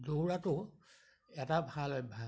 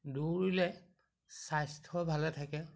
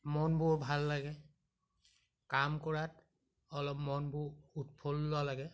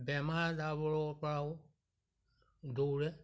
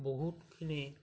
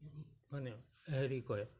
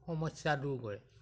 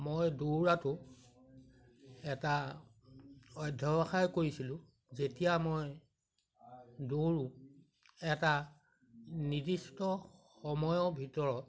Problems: none marked